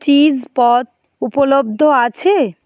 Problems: background sounds at intervals